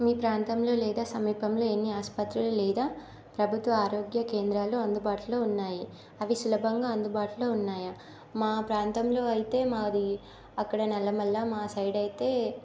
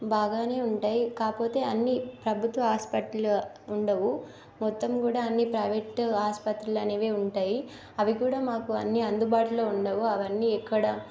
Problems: constant background noise